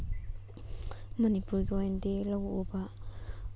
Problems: none marked